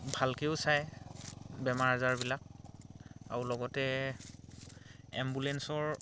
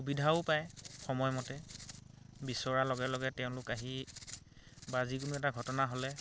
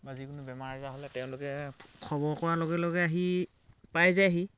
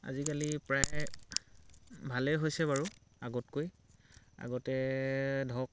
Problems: background sounds at intervals, background conversations at intervals